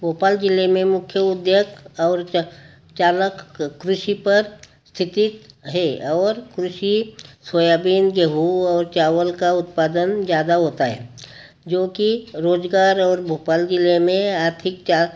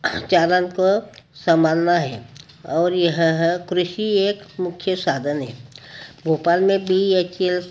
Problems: none marked